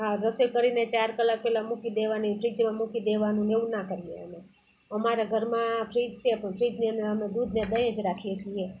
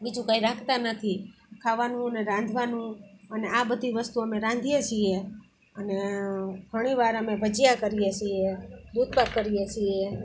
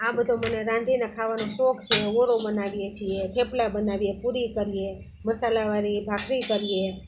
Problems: constant background noise